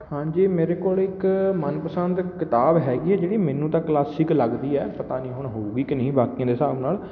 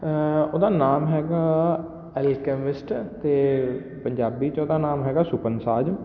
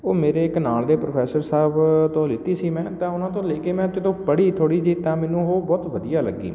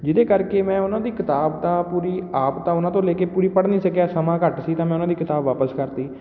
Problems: none marked